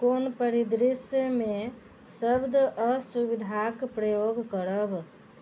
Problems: none marked